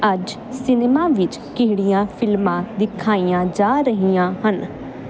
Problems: constant background noise